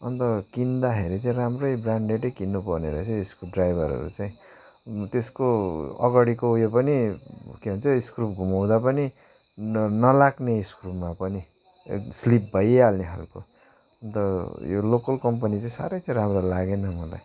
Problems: background sounds at intervals